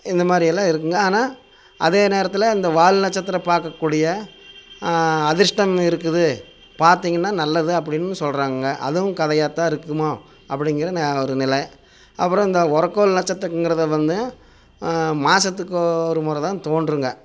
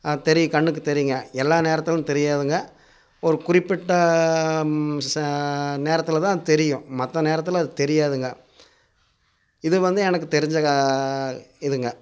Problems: constant background noise